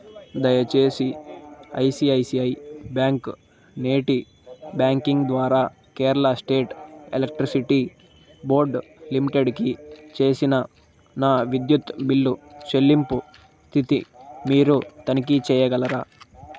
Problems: constant background noise